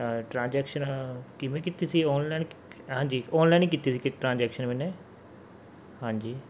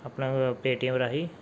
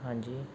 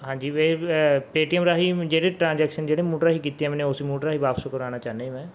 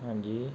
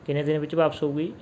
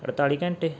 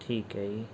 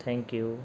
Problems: background sounds at intervals